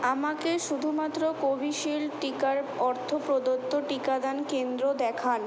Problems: none marked